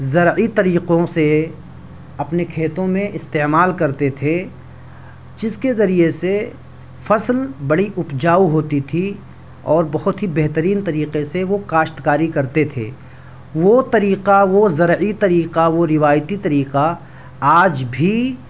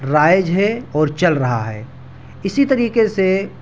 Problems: none marked